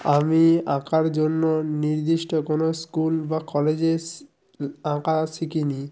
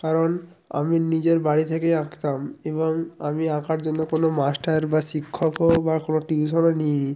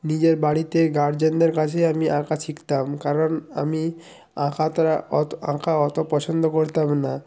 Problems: background sounds at intervals